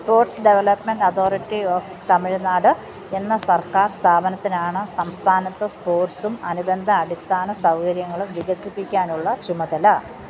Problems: none marked